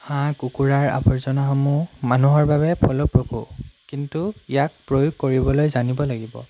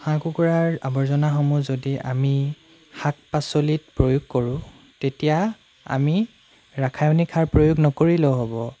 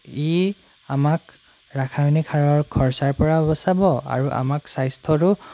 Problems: none marked